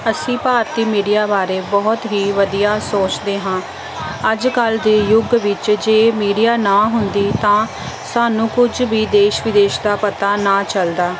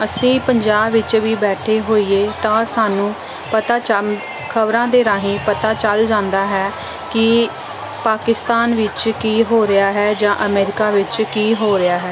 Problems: none marked